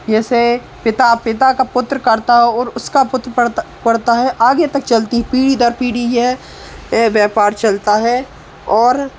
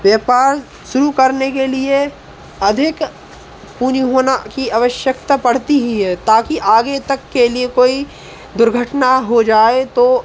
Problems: none marked